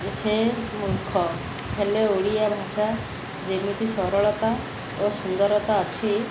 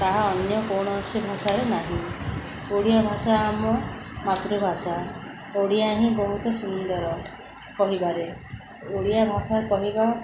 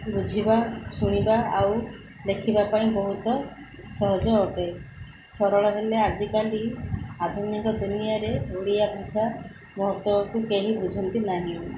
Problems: background sounds at intervals, background conversations at intervals